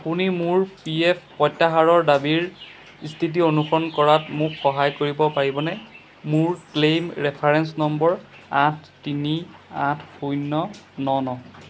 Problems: background sounds at intervals